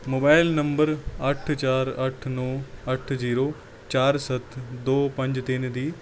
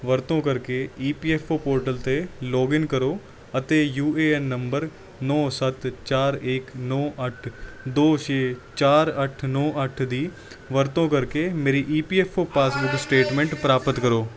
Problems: none marked